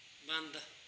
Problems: background sounds at intervals